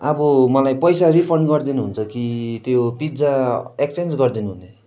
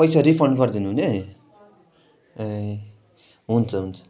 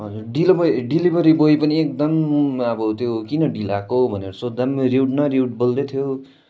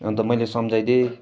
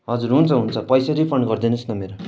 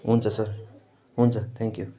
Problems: constant background noise